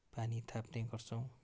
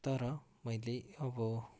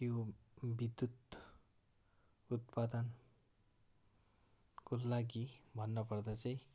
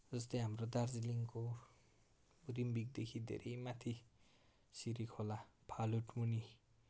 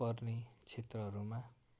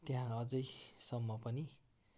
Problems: background sounds at intervals